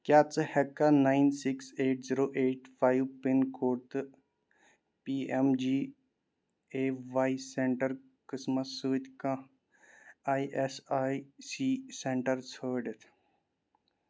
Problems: none marked